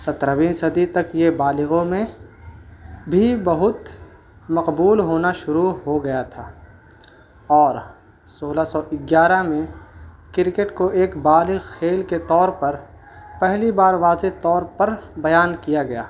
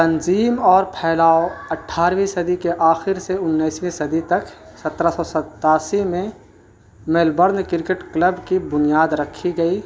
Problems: constant background noise